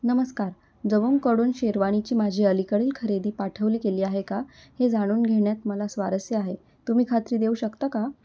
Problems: constant background noise